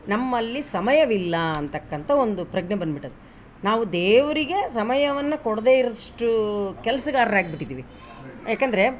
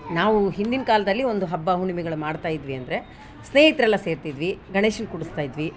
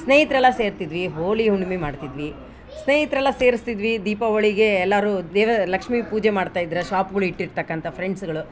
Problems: background sounds at intervals